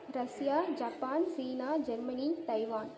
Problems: none marked